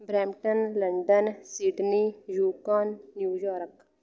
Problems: background conversations at intervals